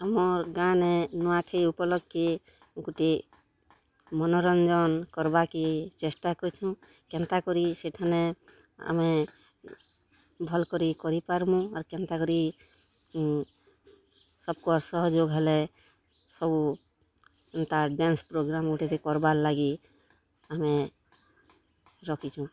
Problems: constant background noise, continuous background conversations